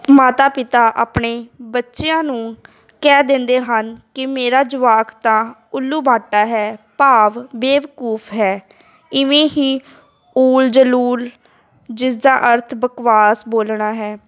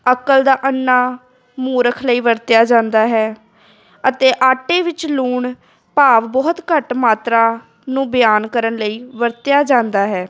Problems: background sounds at intervals, continuous background conversations